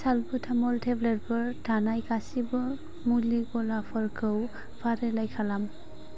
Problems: constant background noise